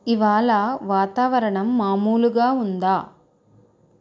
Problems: constant background noise